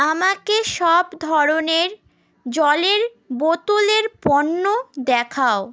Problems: none marked